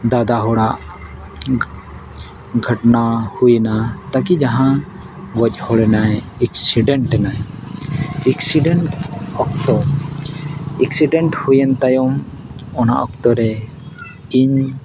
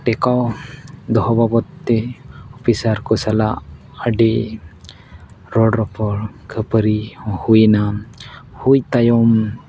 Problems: background sounds at intervals